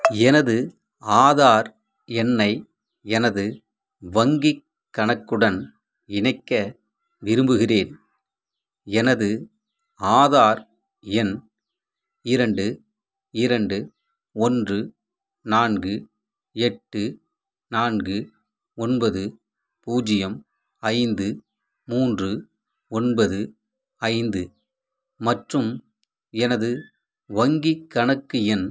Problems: background sounds at intervals